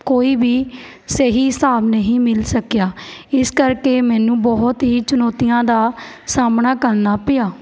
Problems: none marked